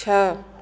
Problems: constant background noise, echo